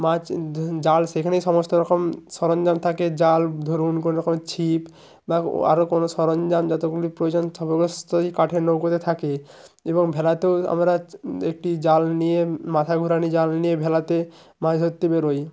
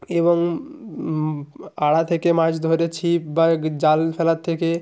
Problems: constant background noise